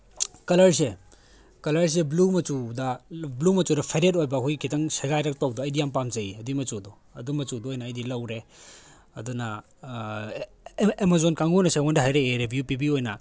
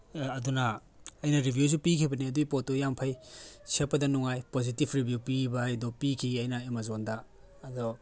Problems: background sounds at intervals